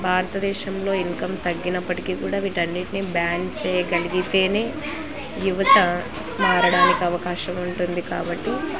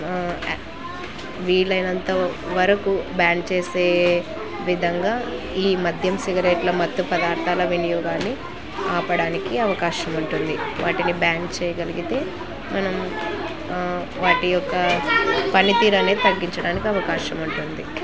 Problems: constant background noise